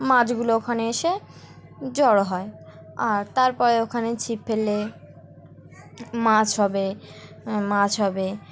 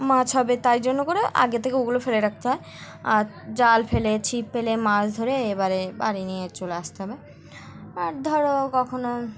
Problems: constant background noise, background conversations at intervals